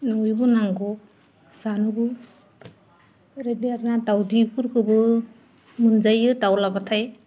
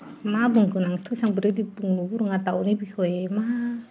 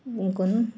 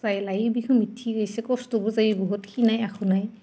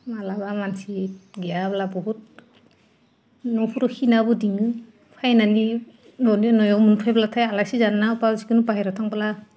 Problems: none marked